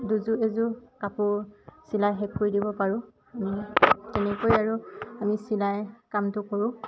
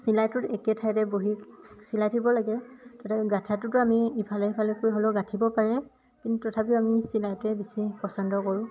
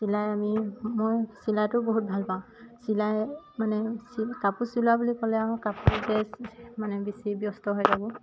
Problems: constant background noise